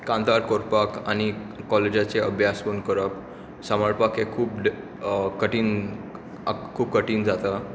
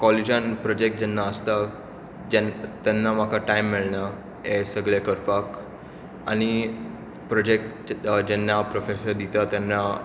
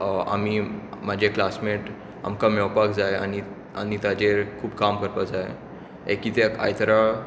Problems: constant background noise